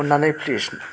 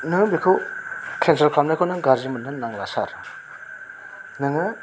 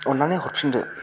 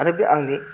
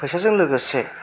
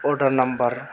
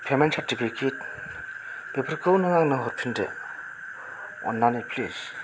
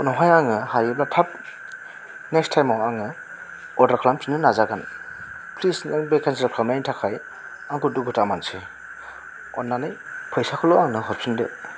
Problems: constant background noise